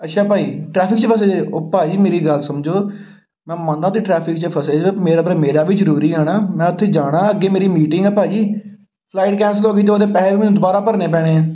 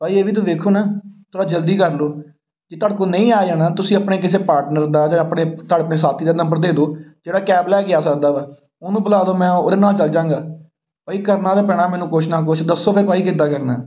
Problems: background sounds at intervals